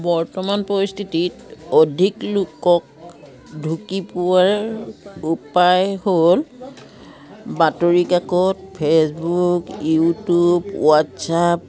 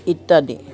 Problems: continuous background conversations